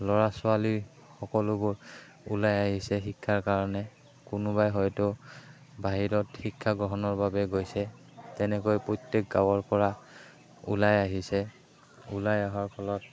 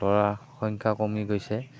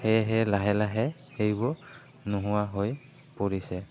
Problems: background sounds at intervals